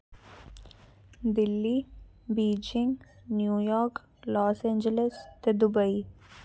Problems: background sounds at intervals